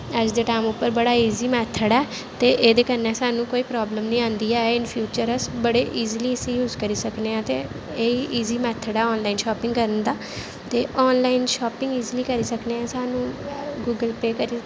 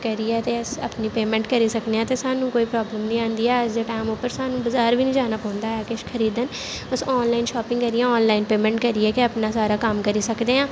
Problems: constant background noise